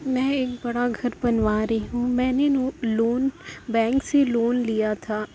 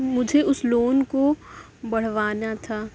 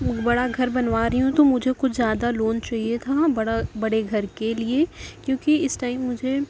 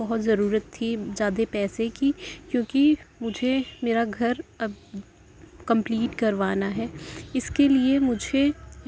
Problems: constant background noise